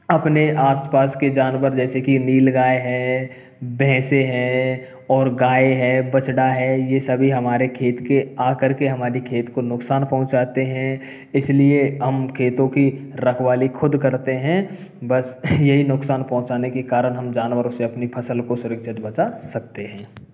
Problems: background sounds at intervals